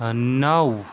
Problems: constant background noise